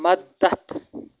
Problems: constant background noise